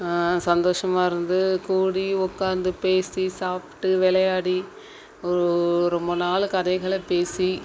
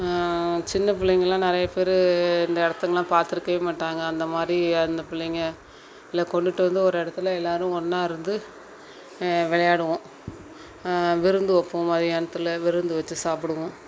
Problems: none marked